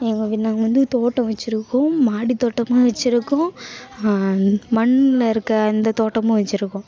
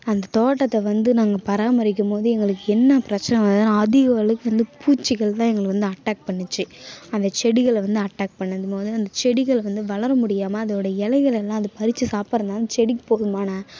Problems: constant background noise, continuous background conversations